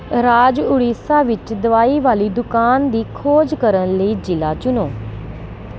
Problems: constant background noise